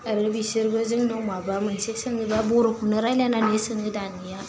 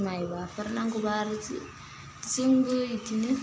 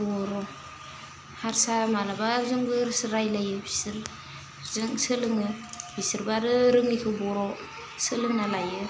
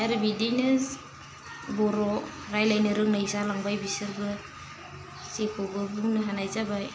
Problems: constant background noise